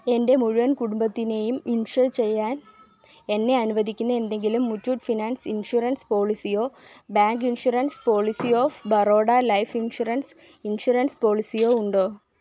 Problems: none marked